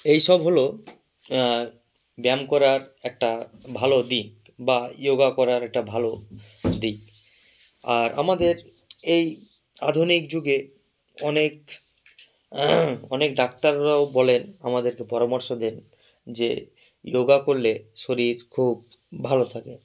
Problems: none marked